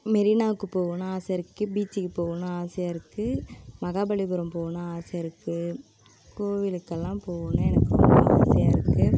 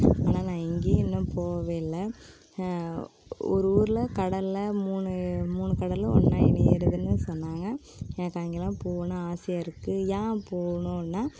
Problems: constant background noise